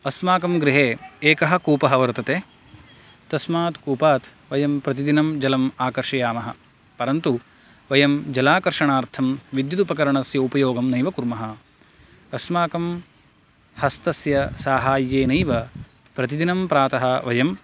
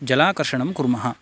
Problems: none marked